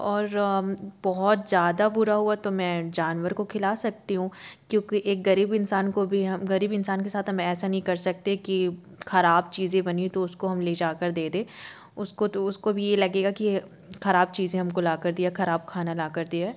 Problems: none marked